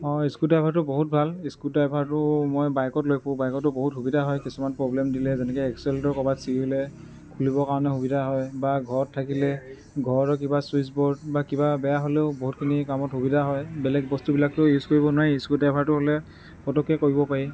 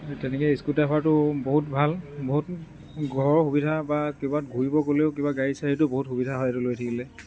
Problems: constant background noise